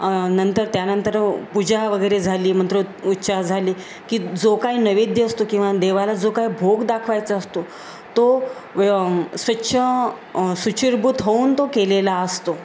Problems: constant background noise